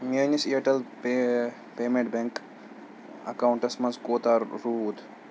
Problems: none marked